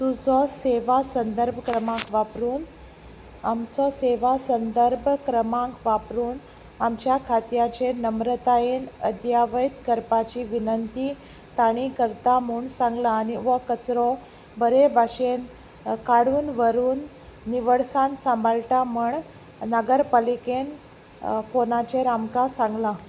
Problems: background sounds at intervals